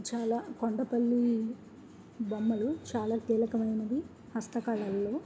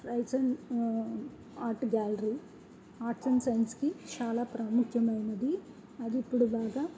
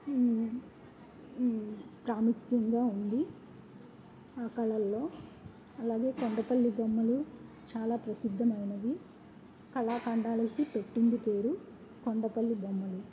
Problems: background sounds at intervals, low volume